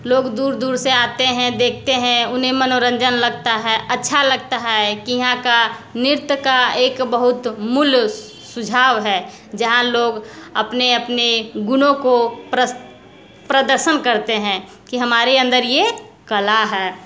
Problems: constant background noise, continuous background conversations